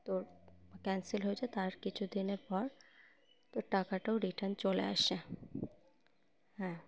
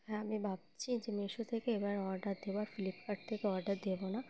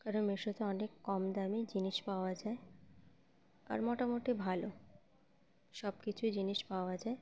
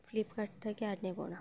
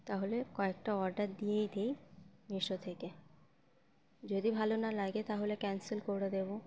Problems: constant background noise